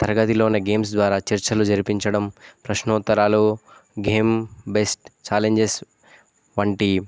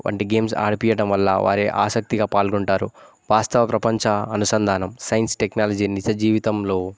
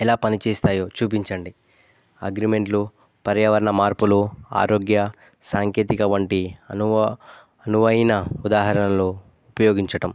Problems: none marked